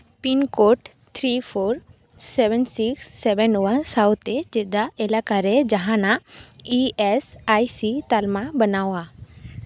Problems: none marked